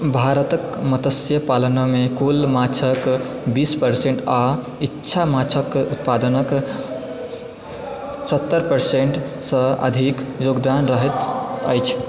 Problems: background sounds at intervals, background conversations at intervals